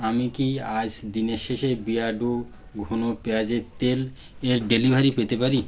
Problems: background sounds at intervals